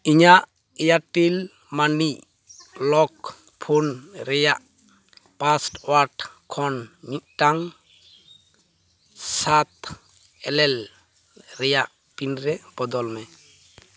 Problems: none marked